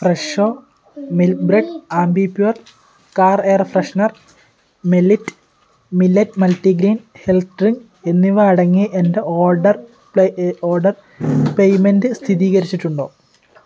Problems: background sounds at intervals